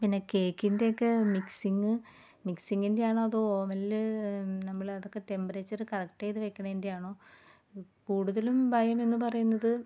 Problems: background sounds at intervals